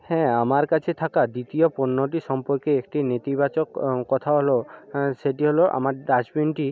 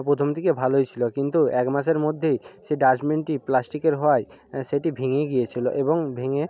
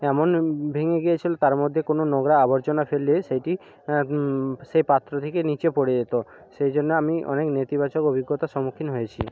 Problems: none marked